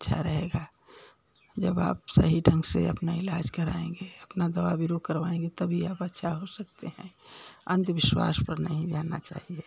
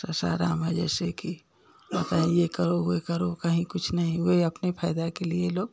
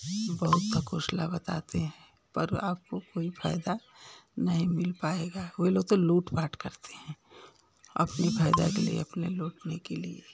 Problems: none marked